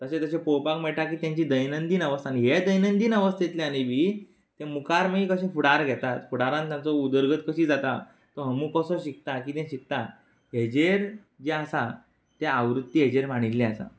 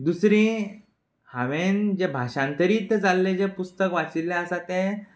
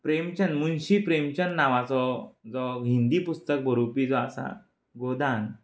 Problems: background sounds at intervals